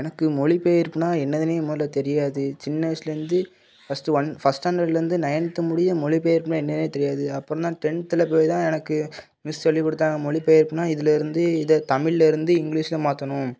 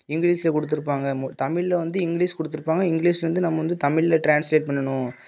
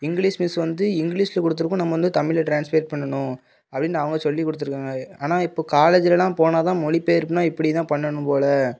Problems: none marked